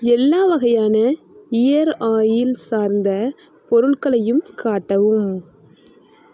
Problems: constant background noise